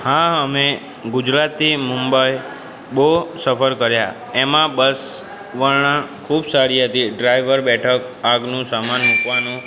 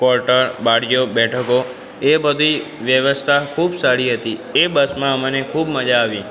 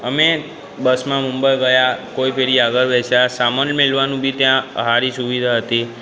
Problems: background conversations at intervals